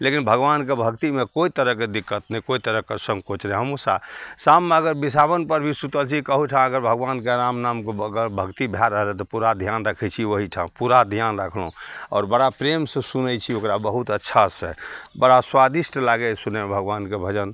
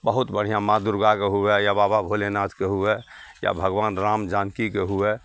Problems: none marked